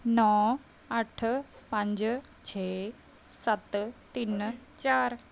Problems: none marked